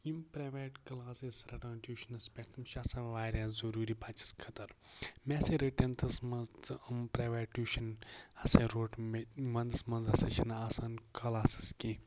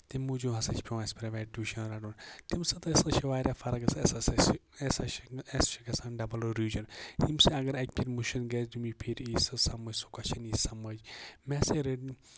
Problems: constant background noise